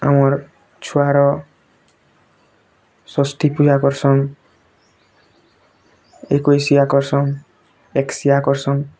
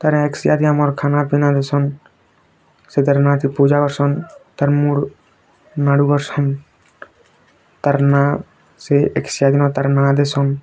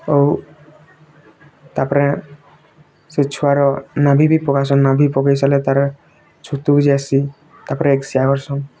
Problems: constant background noise, continuous background conversations